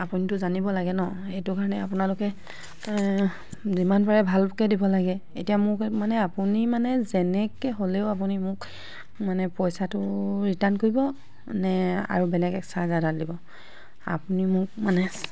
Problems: none marked